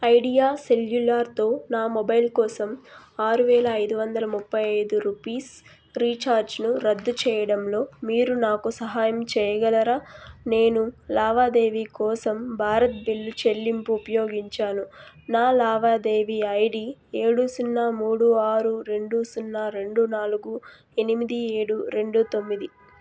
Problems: background sounds at intervals